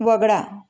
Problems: none marked